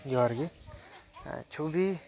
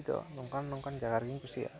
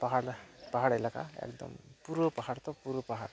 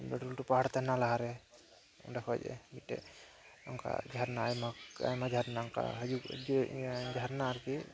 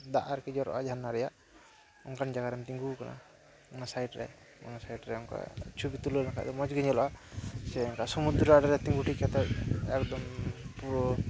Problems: background sounds at intervals